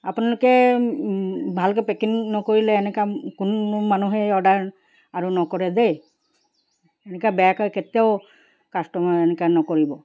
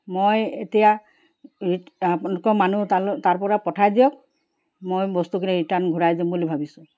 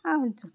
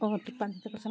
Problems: background sounds at intervals